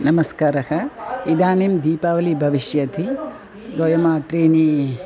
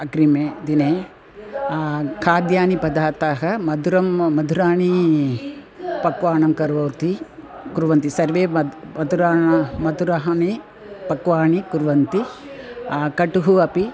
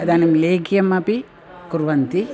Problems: background sounds at intervals